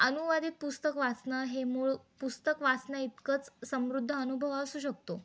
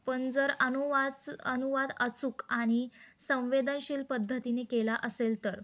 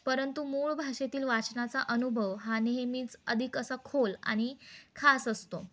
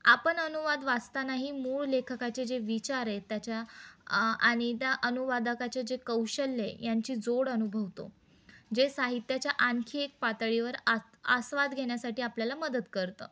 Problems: none marked